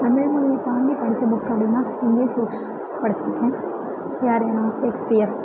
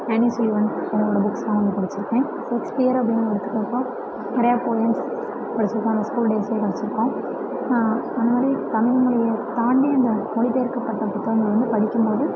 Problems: constant background noise